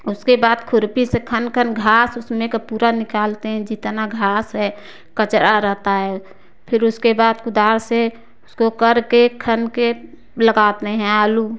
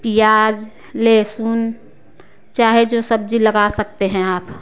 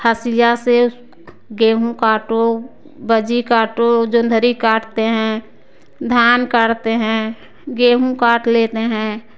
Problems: background sounds at intervals